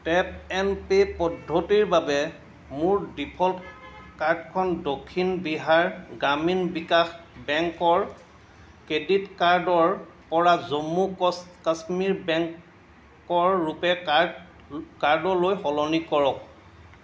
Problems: constant background noise